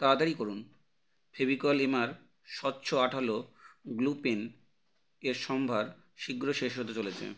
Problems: none marked